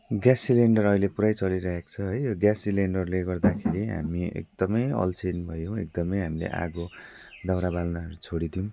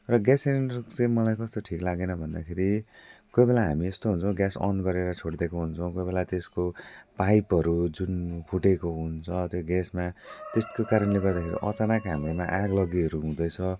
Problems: constant background noise